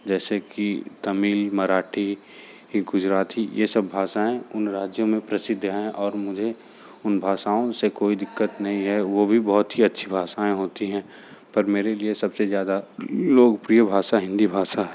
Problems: none marked